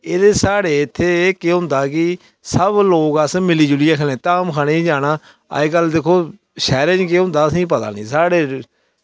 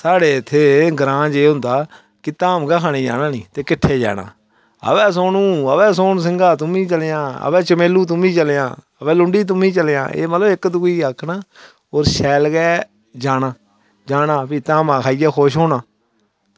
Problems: none marked